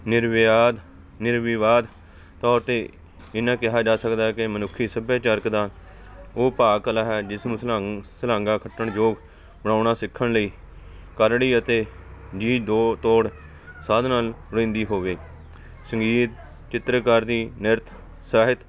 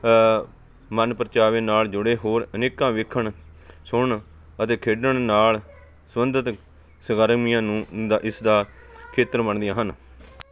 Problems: continuous background conversations